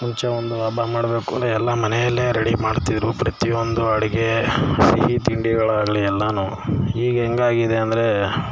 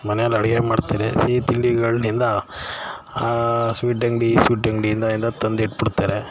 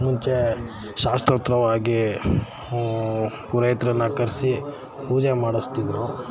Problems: background sounds at intervals